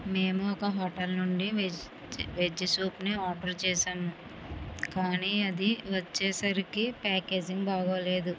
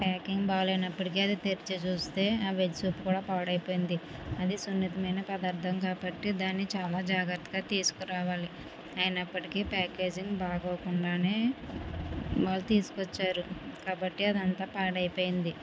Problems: constant background noise